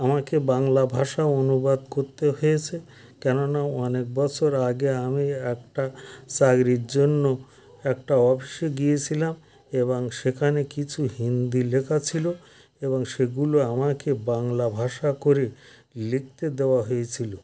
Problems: none marked